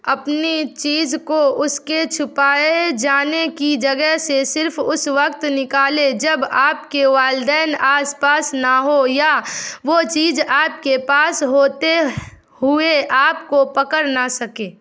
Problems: none marked